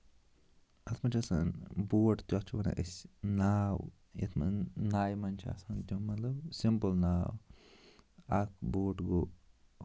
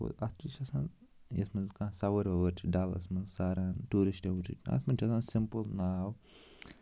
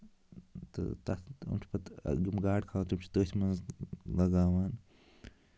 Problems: constant background noise